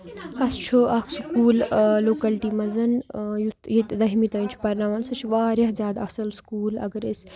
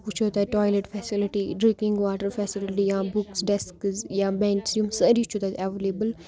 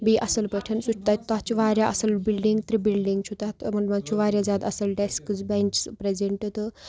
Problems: background sounds at intervals, background conversations at intervals